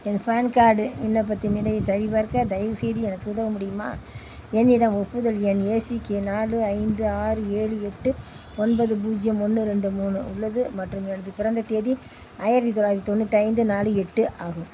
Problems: constant background noise